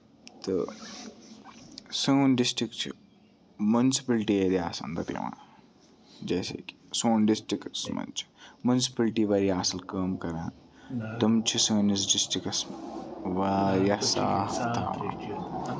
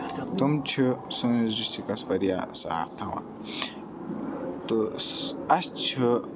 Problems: background sounds at intervals, continuous background conversations